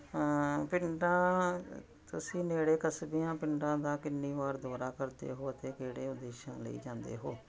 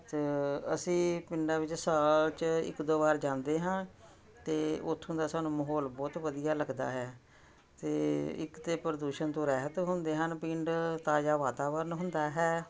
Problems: continuous background conversations